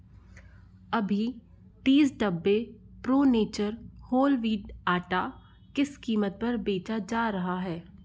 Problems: low volume